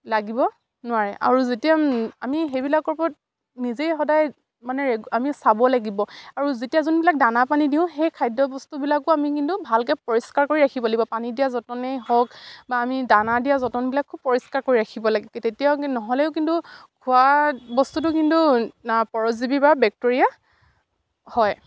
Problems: none marked